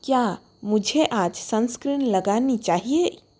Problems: constant background noise